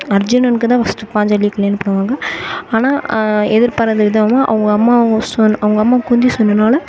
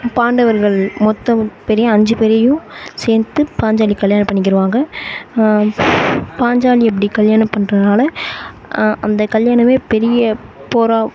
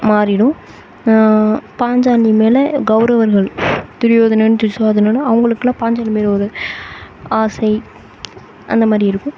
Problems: constant background noise